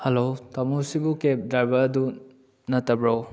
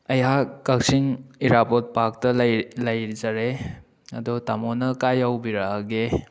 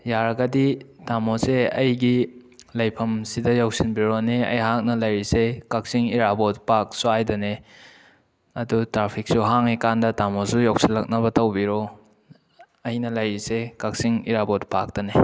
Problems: none marked